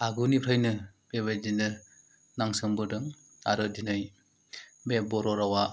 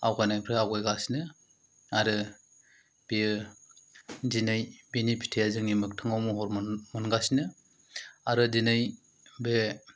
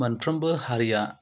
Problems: low volume